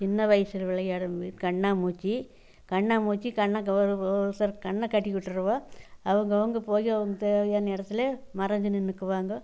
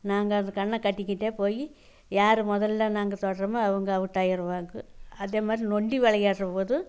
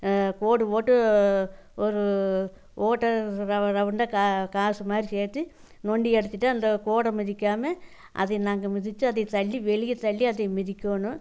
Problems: none marked